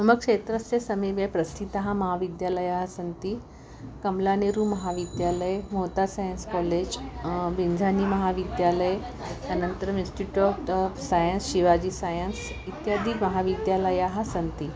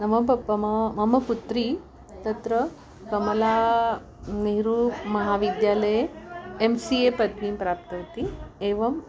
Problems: none marked